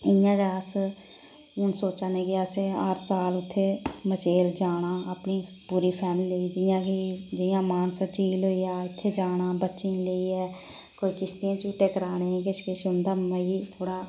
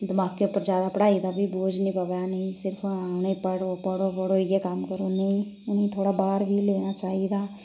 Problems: none marked